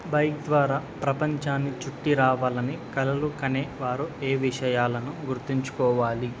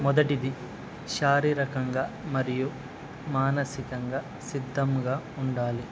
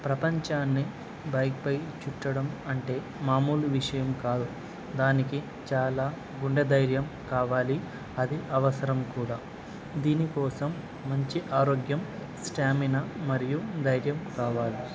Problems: none marked